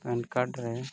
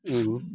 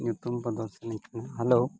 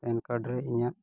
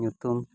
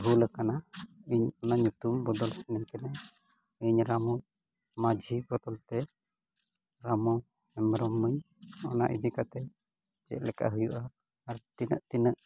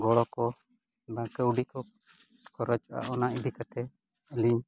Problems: background sounds at intervals, low volume